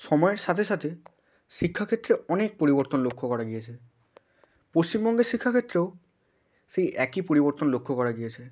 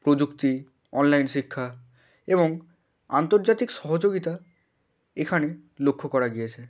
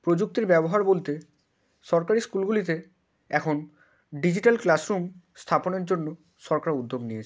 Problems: background sounds at intervals